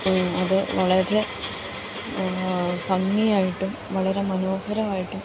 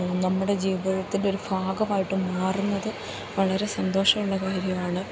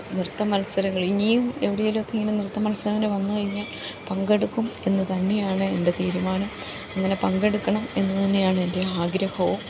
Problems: none marked